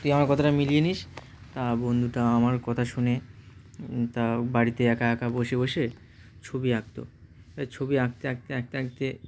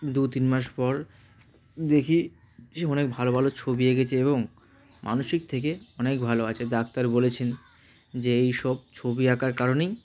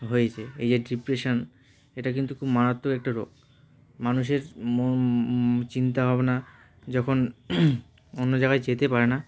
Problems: constant background noise, continuous background conversations